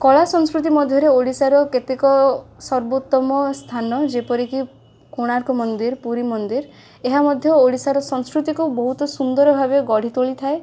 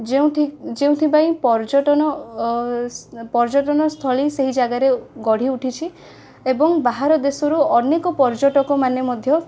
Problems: constant background noise